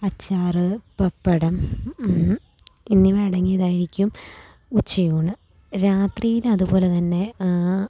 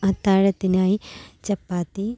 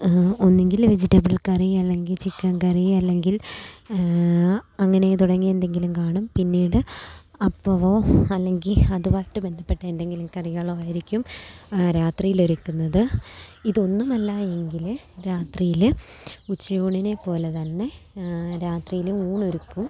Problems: low volume